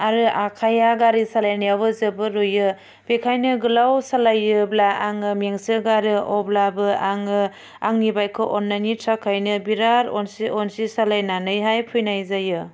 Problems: none marked